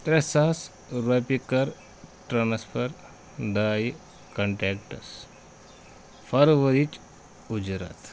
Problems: background sounds at intervals